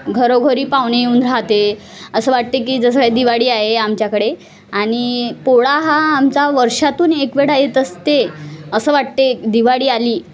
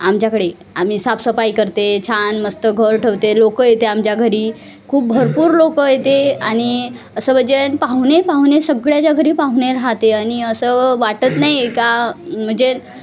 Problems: constant background noise, continuous background conversations